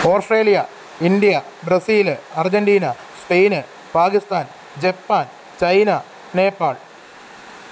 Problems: constant background noise